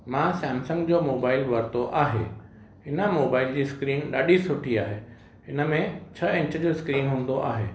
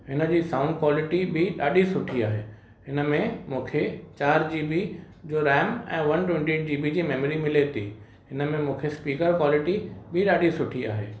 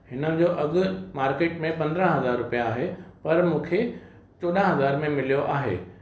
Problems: constant background noise, echo